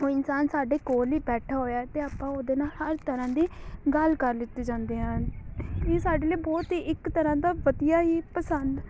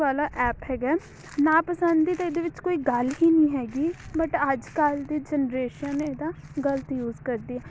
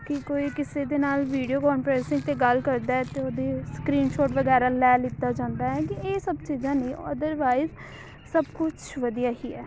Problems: constant background noise